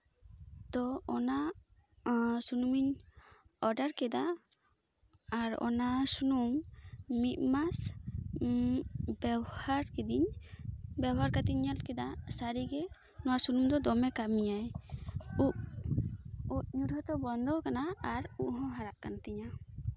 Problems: background sounds at intervals